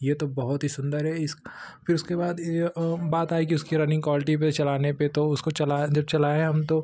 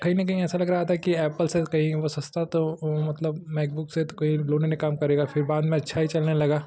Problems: constant background noise